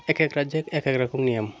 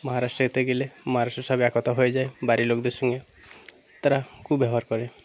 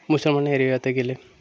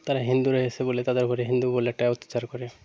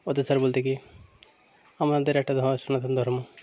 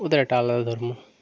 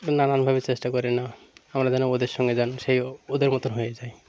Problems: constant background noise, background conversations at intervals